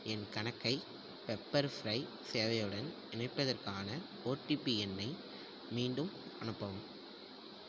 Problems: none marked